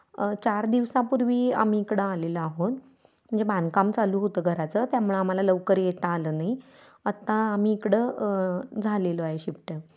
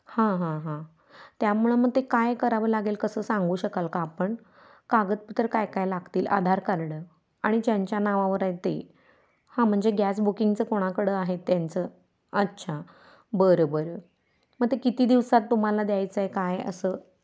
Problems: constant background noise, background conversations at intervals